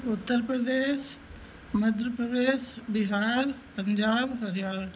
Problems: none marked